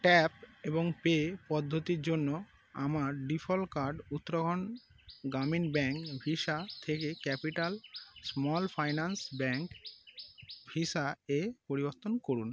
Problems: constant background noise